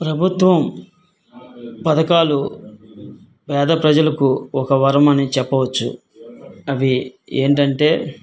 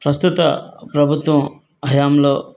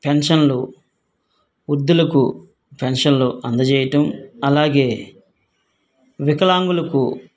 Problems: none marked